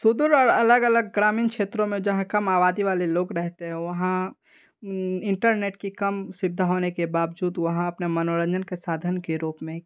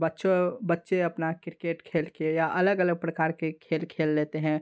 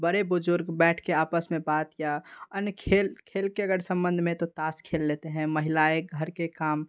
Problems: background sounds at intervals